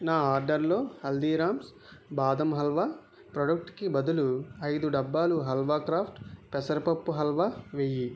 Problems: none marked